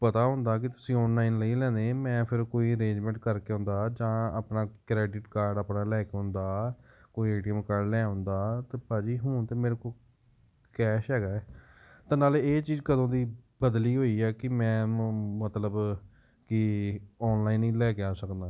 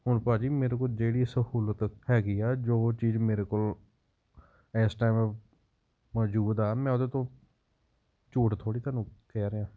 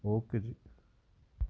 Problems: background sounds at intervals